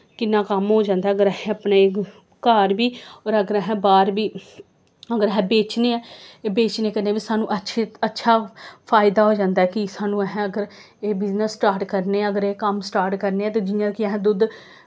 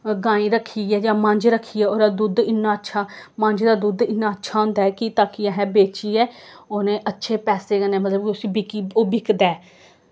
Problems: none marked